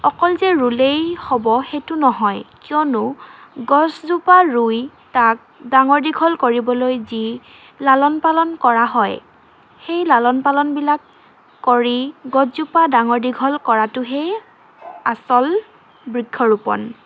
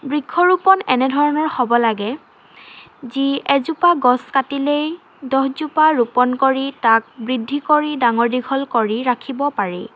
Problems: constant background noise